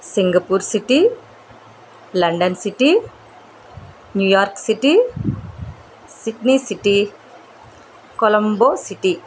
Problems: constant background noise